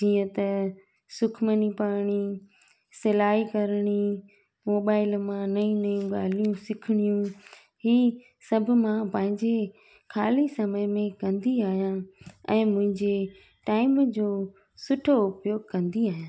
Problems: background sounds at intervals